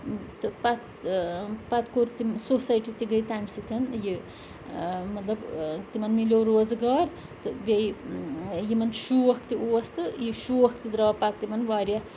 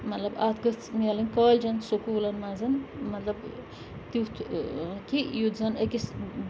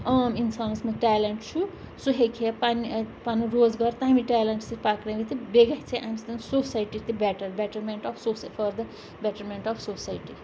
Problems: constant background noise